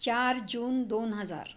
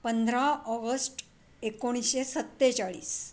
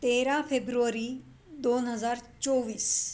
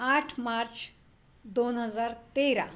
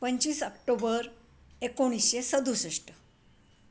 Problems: none marked